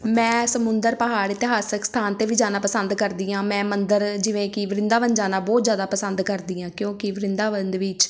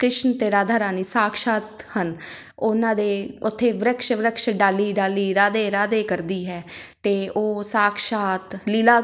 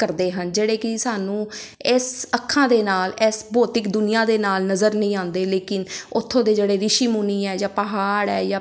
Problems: background sounds at intervals